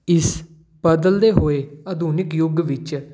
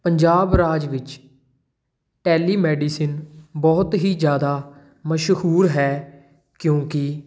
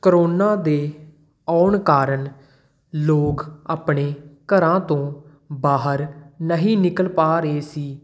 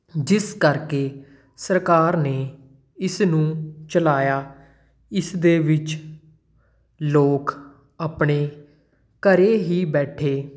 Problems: none marked